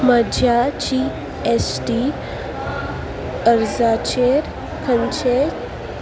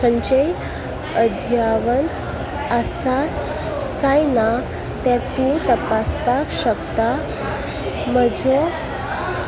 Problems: constant background noise